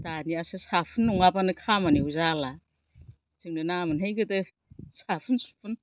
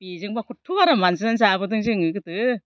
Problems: low volume